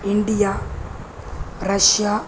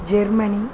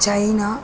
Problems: constant background noise